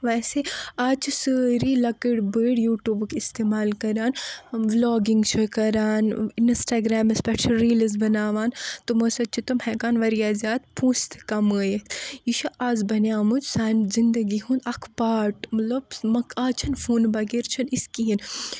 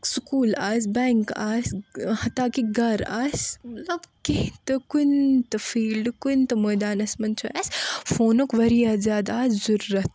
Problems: none marked